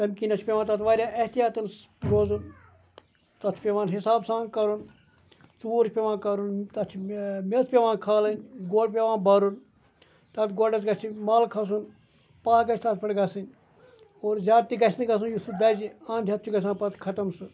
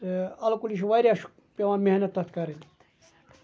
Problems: background conversations at intervals